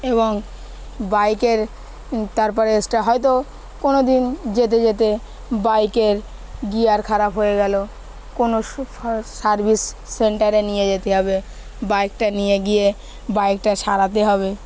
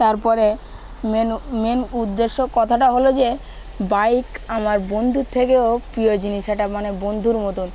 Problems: constant background noise, background conversations at intervals